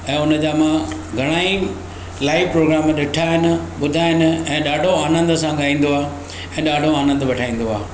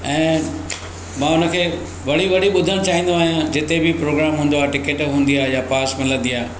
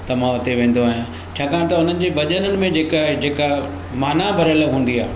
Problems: constant background noise